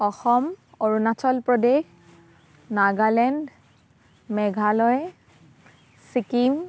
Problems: constant background noise